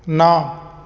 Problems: none marked